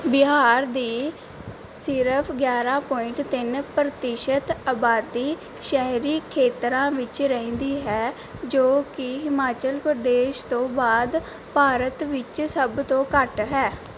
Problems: background sounds at intervals